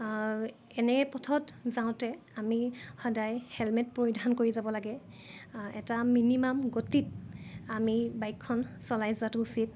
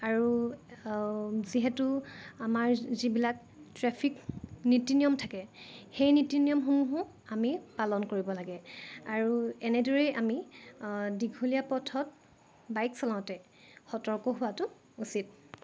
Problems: none marked